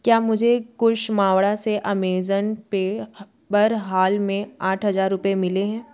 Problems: background conversations at intervals